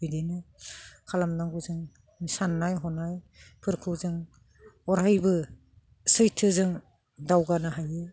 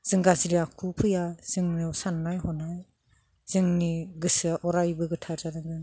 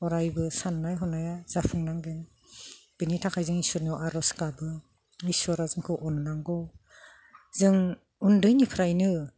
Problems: none marked